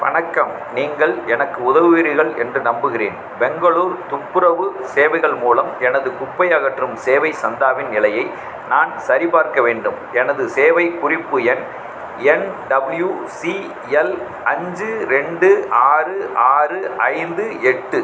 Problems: constant background noise